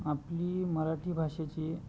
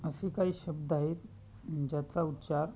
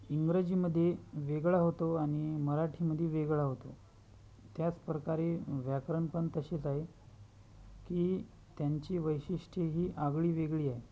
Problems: constant background noise, continuous background conversations